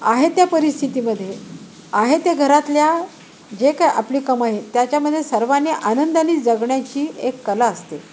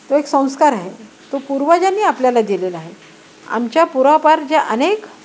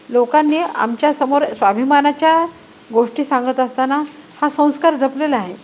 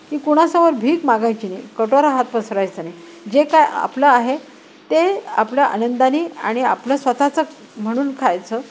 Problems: none marked